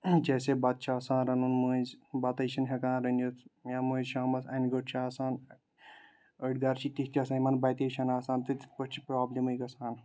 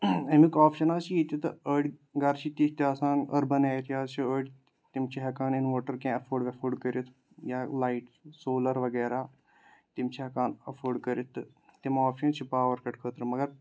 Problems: background sounds at intervals